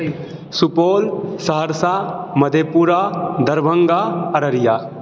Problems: none marked